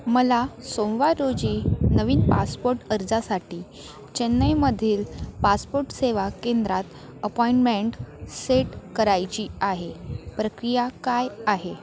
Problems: constant background noise